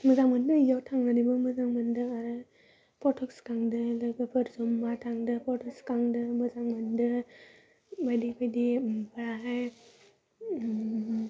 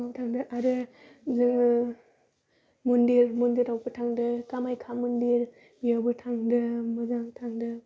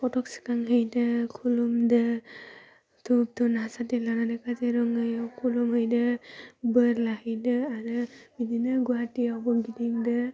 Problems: constant background noise